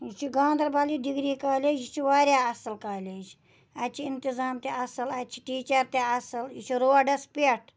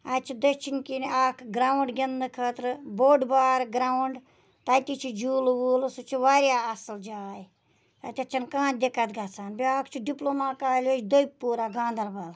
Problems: none marked